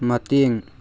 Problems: background sounds at intervals